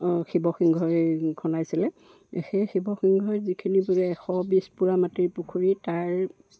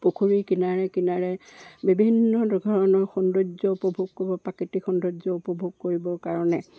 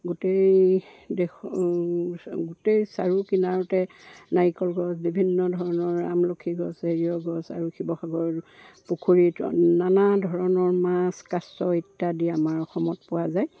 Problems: background sounds at intervals